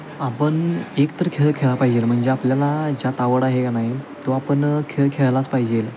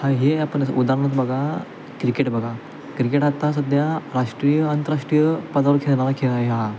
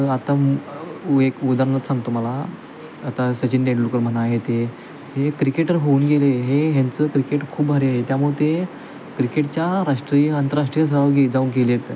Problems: constant background noise